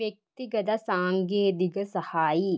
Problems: low volume